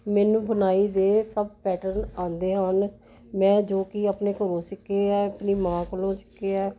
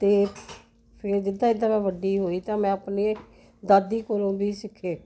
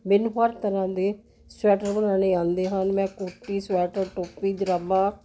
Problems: constant background noise